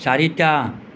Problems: constant background noise